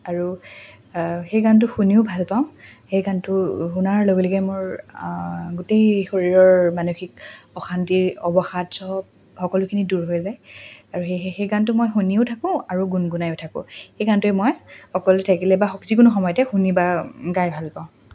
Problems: constant background noise, background conversations at intervals